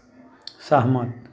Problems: none marked